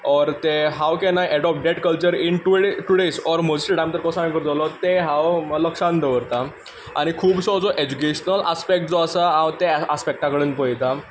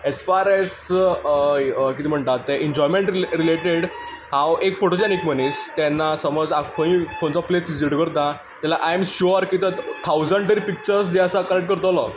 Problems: constant background noise